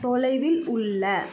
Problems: constant background noise, background conversations at intervals